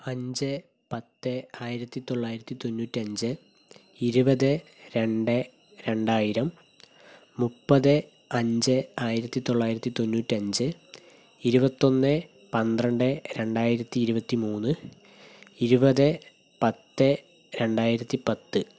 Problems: constant background noise